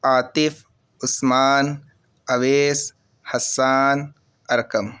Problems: constant background noise